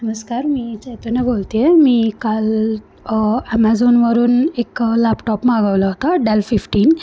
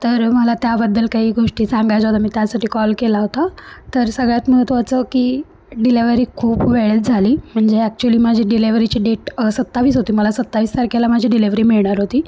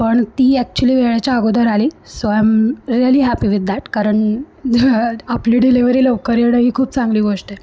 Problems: none marked